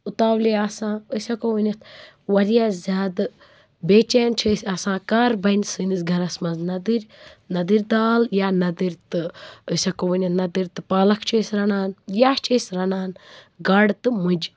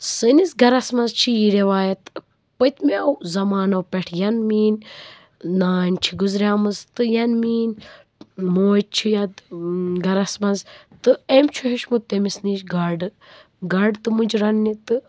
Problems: constant background noise